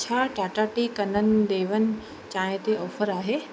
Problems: constant background noise